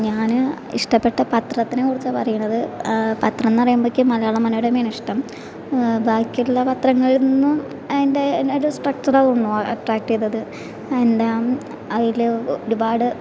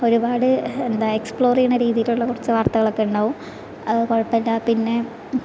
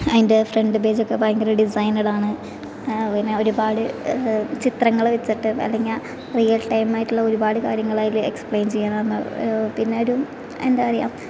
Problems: constant background noise